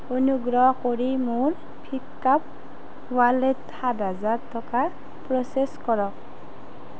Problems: background conversations at intervals